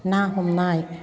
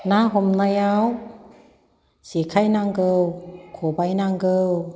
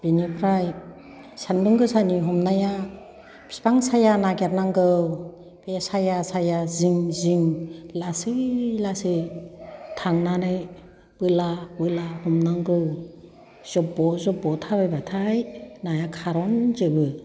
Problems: background conversations at intervals